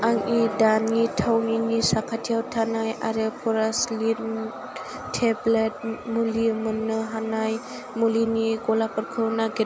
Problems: none marked